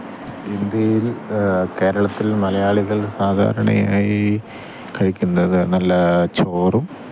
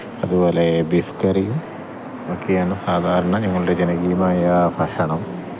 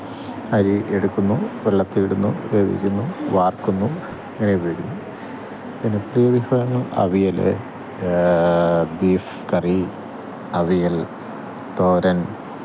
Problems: none marked